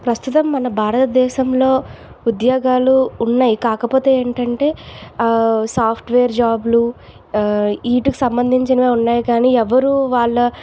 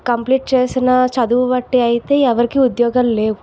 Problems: none marked